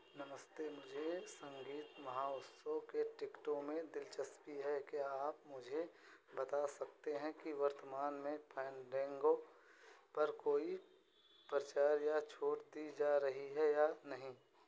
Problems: constant background noise